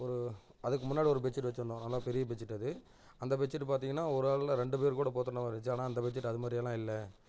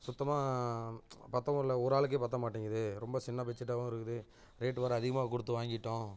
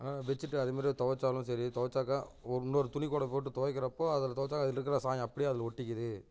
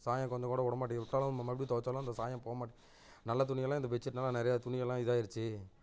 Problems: constant background noise, low volume